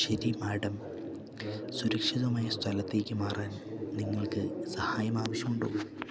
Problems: constant background noise, low volume